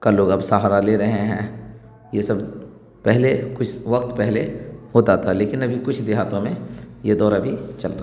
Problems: none marked